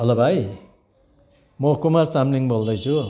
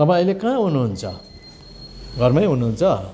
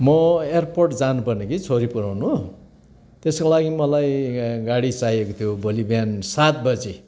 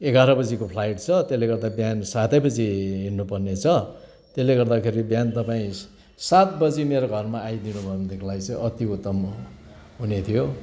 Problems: constant background noise, continuous background conversations